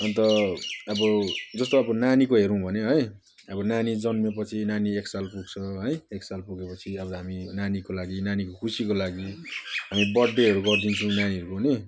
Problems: none marked